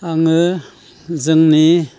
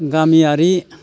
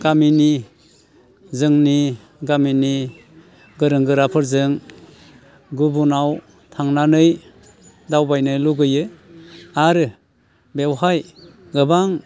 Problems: constant background noise